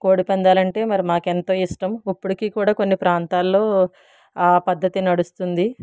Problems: none marked